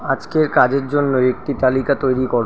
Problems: constant background noise